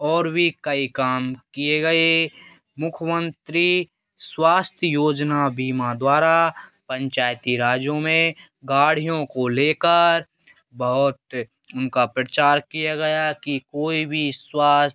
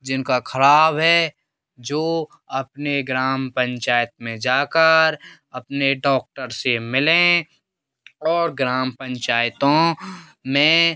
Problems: none marked